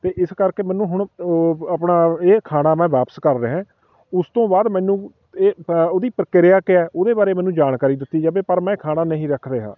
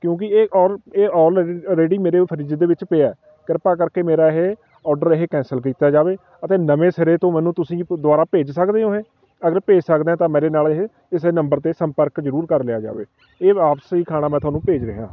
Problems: constant background noise